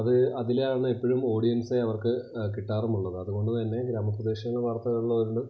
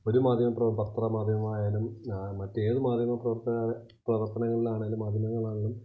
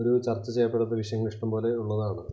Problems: constant background noise, low volume